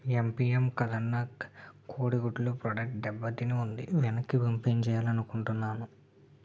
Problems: low volume